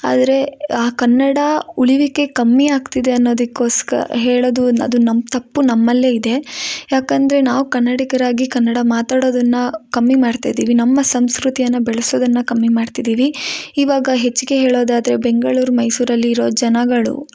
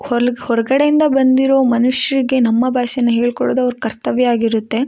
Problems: none marked